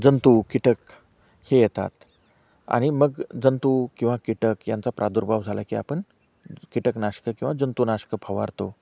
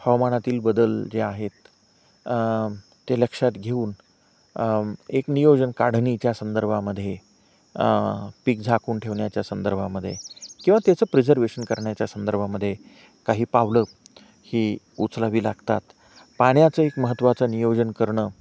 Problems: none marked